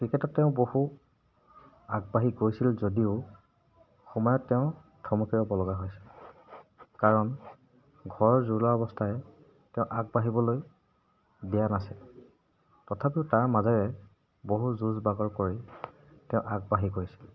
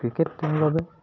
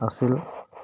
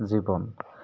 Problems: background sounds at intervals